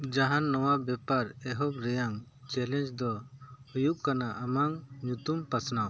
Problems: none marked